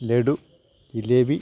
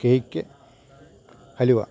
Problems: low volume